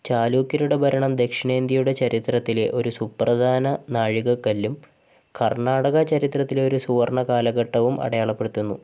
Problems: none marked